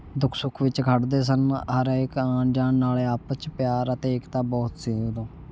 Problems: constant background noise